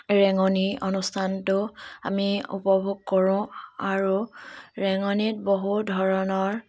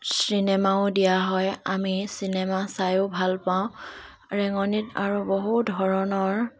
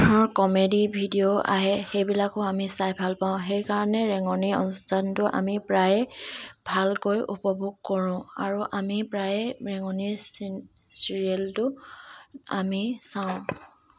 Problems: background sounds at intervals, continuous background conversations